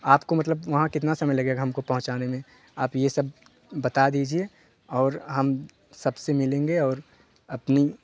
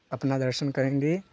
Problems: constant background noise